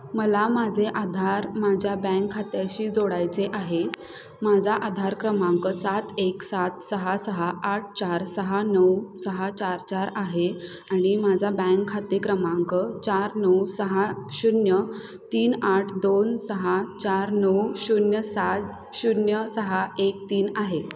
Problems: none marked